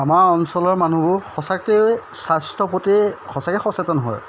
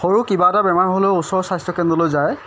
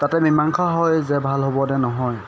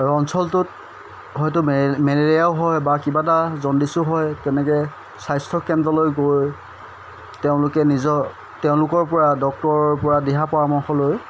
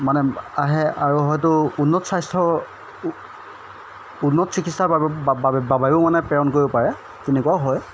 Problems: constant background noise